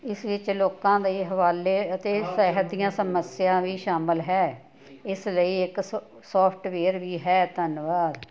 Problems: none marked